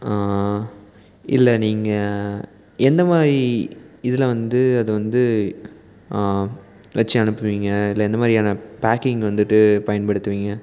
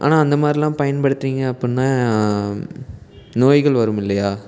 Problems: background sounds at intervals